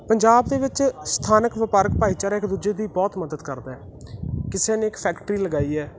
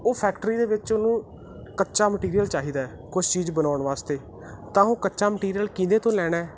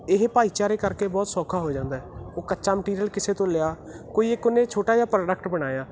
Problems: constant background noise